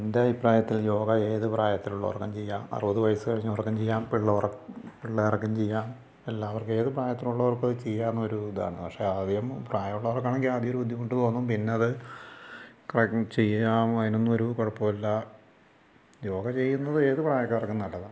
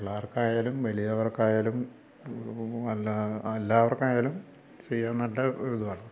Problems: low volume